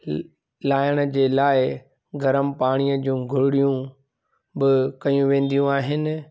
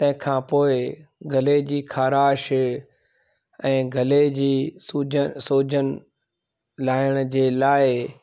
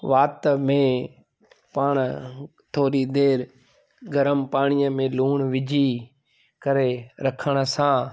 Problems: constant background noise